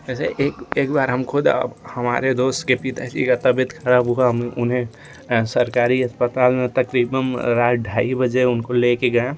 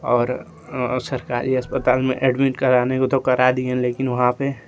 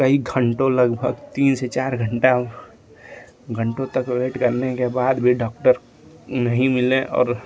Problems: constant background noise